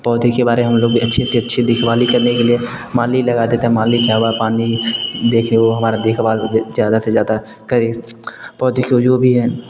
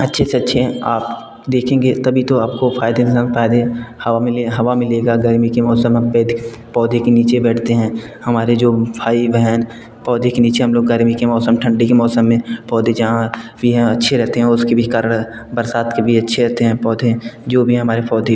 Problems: background sounds at intervals